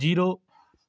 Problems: none marked